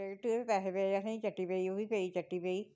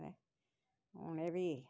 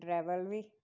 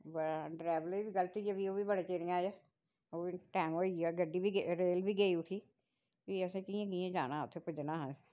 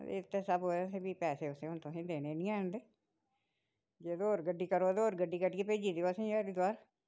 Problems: none marked